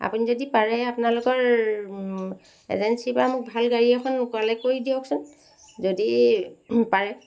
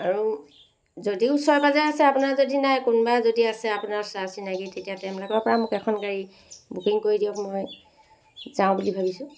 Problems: constant background noise